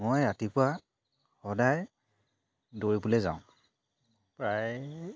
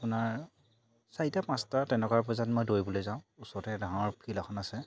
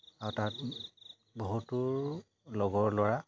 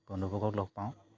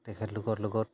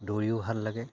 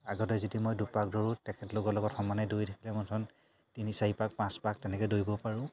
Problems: none marked